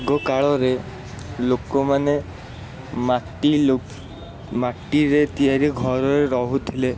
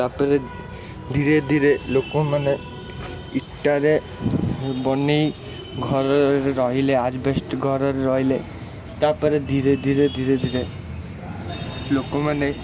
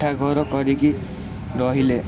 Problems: constant background noise, continuous background conversations